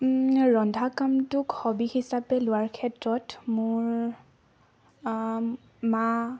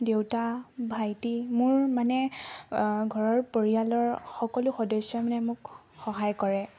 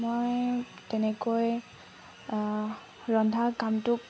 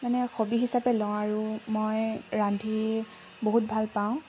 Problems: constant background noise, background conversations at intervals